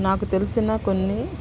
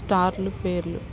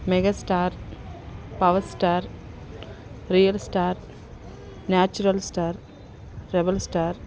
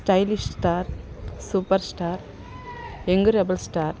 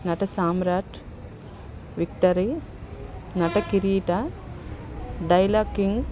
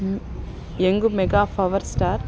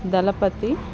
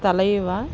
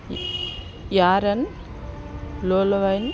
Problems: constant background noise, background conversations at intervals